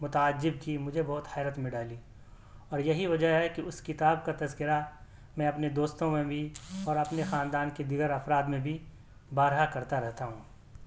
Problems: none marked